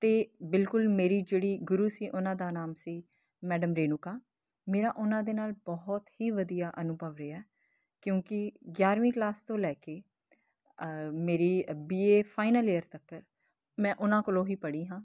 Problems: constant background noise